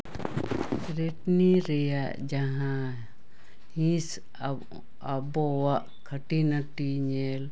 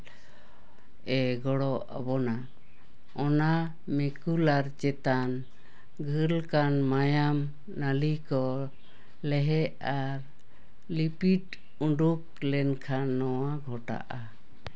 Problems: none marked